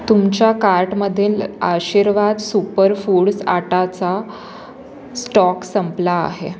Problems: constant background noise, background conversations at intervals